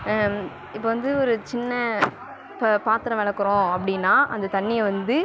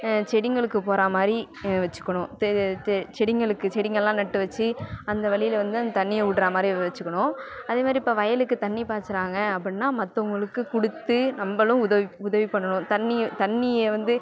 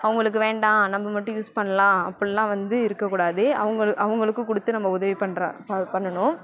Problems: none marked